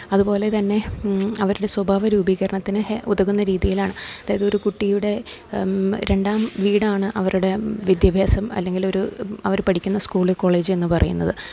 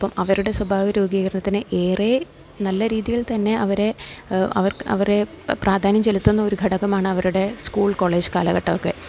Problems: low volume